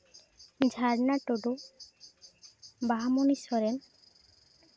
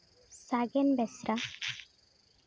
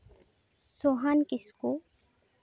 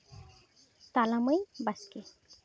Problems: background sounds at intervals, background conversations at intervals